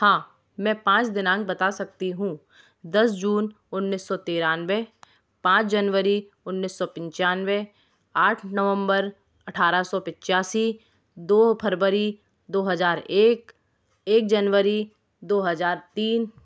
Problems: none marked